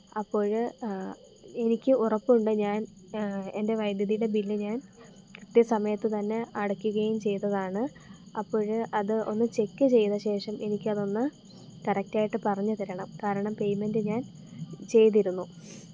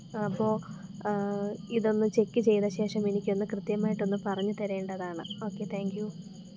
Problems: constant background noise, low volume